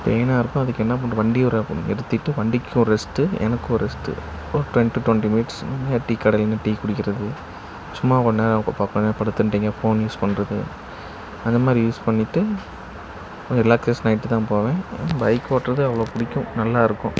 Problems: constant background noise